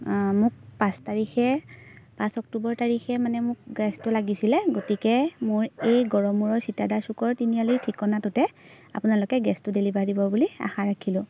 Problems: background sounds at intervals